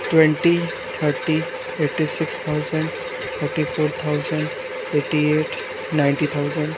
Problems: constant background noise